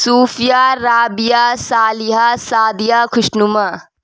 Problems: none marked